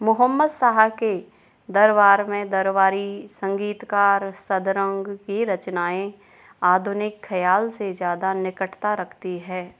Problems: none marked